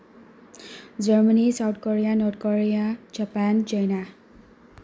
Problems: background sounds at intervals